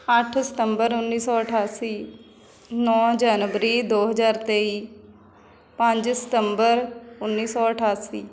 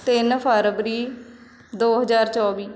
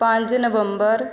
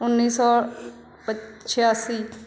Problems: constant background noise